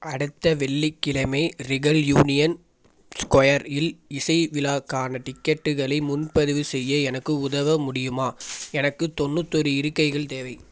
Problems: background sounds at intervals